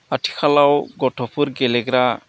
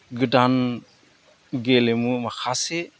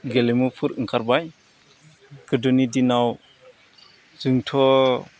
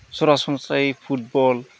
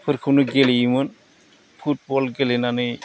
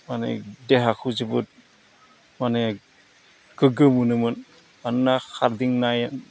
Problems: none marked